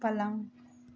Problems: constant background noise, echo